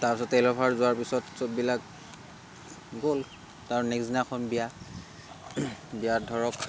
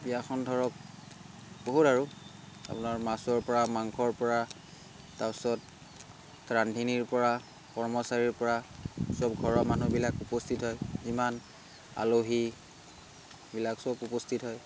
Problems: constant background noise